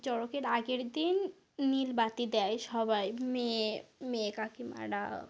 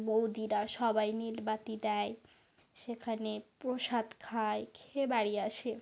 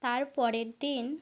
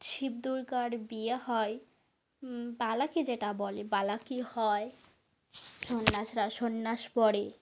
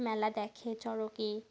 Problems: none marked